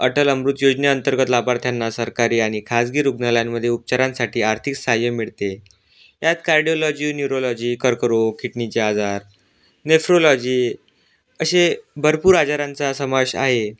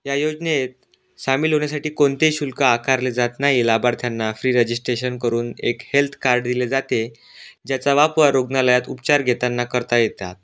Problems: background sounds at intervals